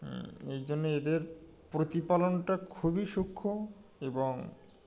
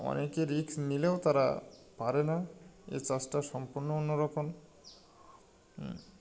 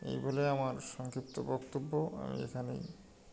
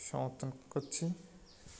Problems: none marked